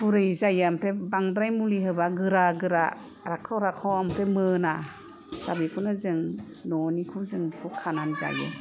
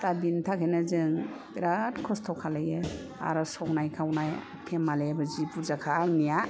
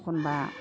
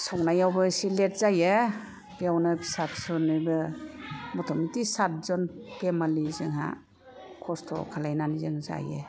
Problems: none marked